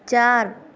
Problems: none marked